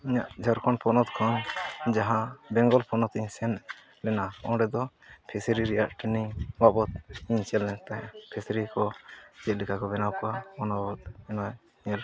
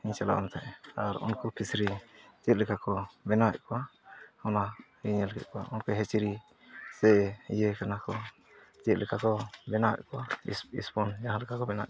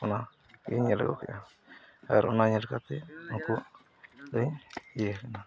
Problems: none marked